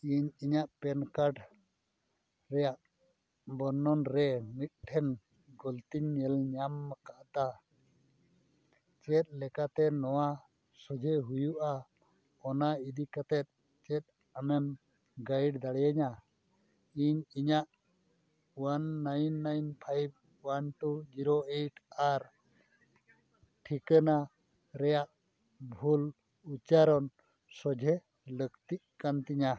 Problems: none marked